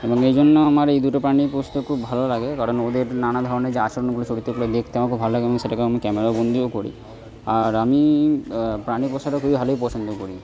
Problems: background sounds at intervals, continuous background conversations